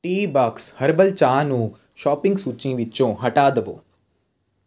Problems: constant background noise